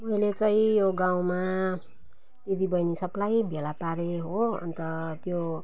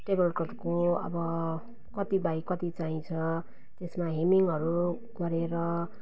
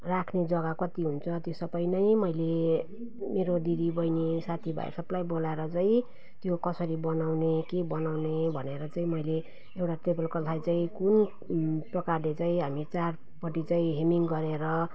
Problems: none marked